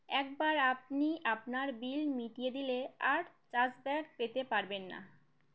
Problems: none marked